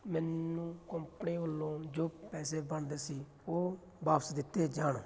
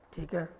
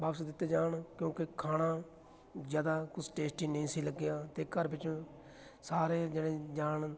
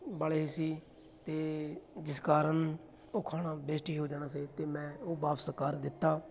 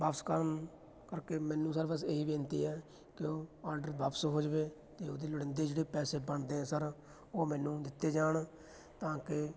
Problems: background sounds at intervals, continuous background conversations